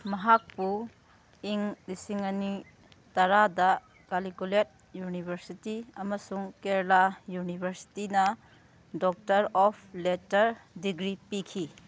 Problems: background sounds at intervals